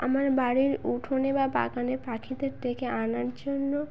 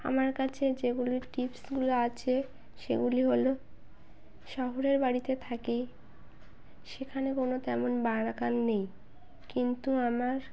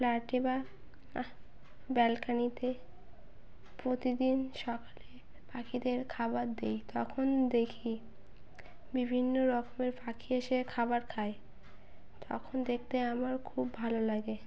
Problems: background sounds at intervals